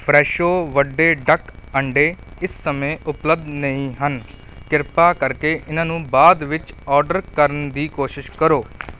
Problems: none marked